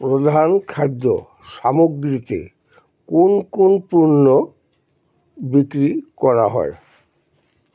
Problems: none marked